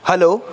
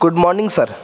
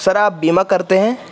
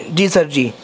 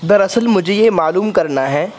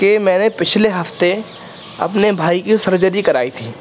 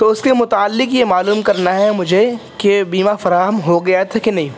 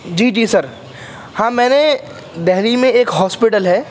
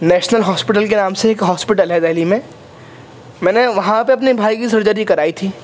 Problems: constant background noise